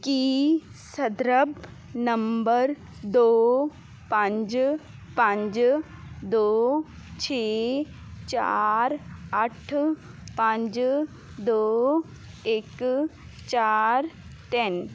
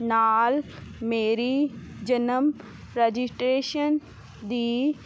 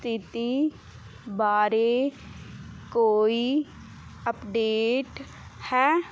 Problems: none marked